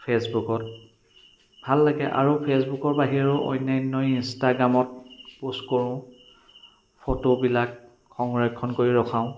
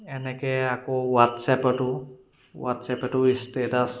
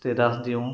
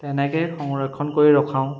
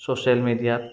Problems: background sounds at intervals, continuous background conversations